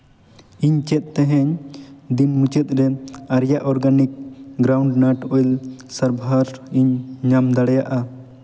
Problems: background sounds at intervals, echo